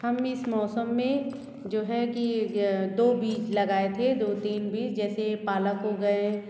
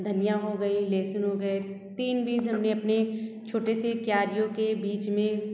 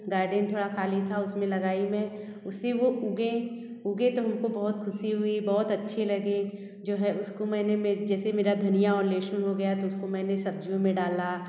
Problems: background sounds at intervals